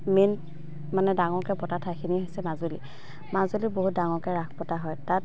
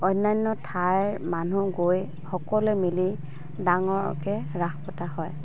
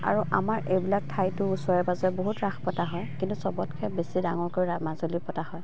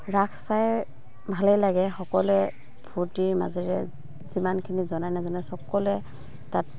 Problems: constant background noise, background conversations at intervals